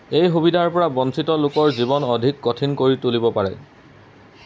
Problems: background sounds at intervals